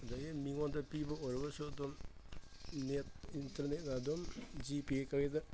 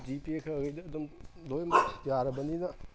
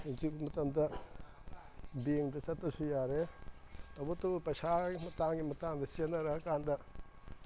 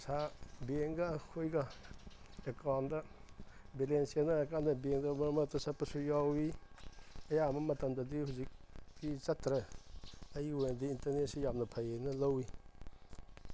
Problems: background sounds at intervals